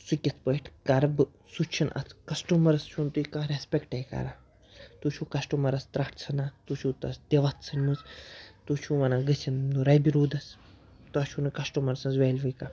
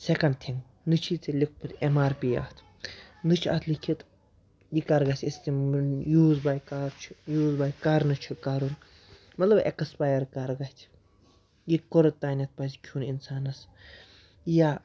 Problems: background sounds at intervals